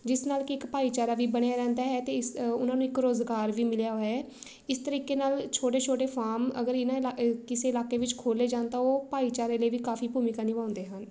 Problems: none marked